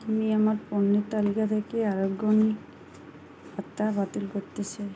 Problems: constant background noise